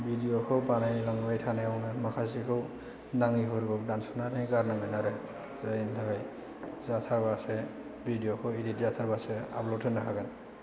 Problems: low volume